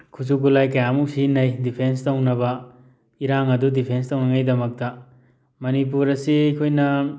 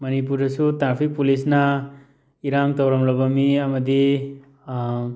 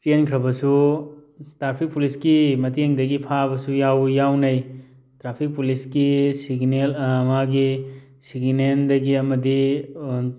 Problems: none marked